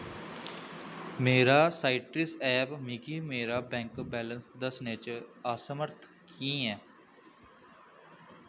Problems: constant background noise